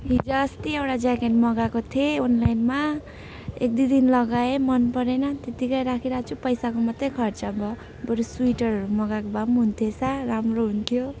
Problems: none marked